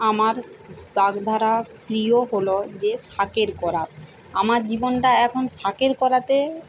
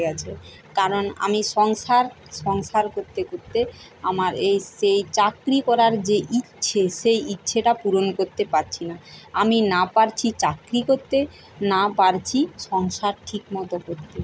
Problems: constant background noise